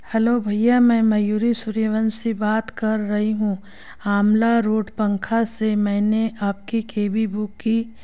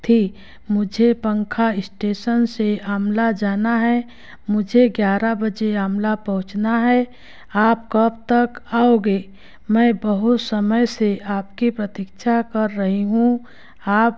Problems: constant background noise